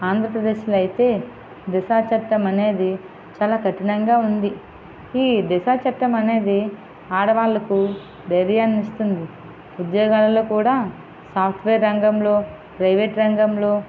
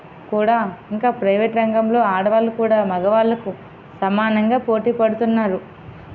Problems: none marked